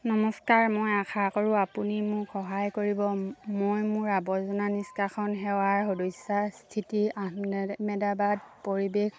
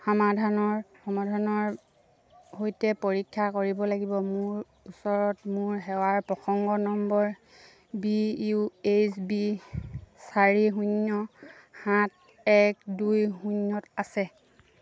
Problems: none marked